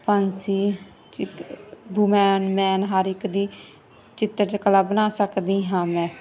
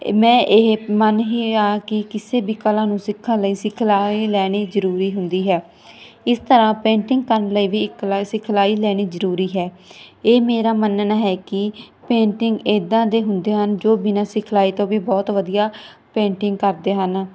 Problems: none marked